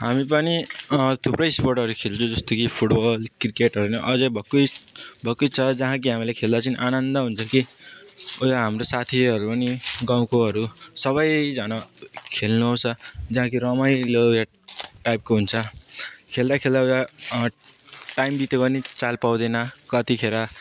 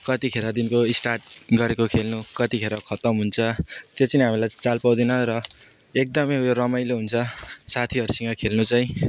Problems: background sounds at intervals, background conversations at intervals